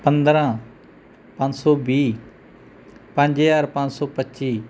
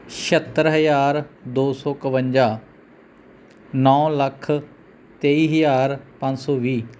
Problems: none marked